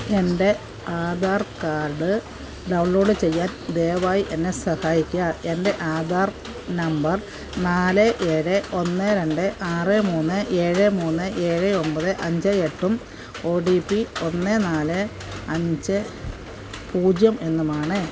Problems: constant background noise